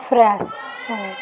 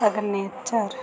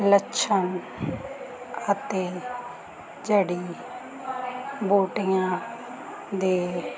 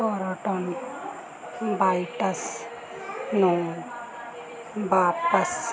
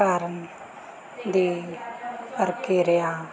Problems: constant background noise